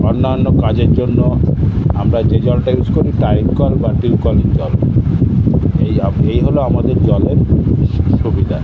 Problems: constant background noise